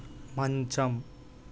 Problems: constant background noise